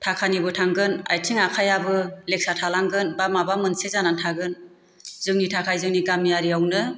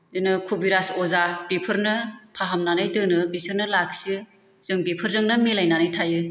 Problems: constant background noise